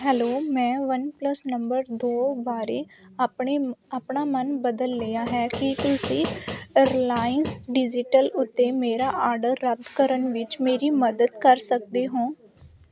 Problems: constant background noise